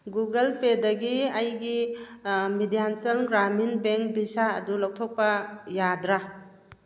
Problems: none marked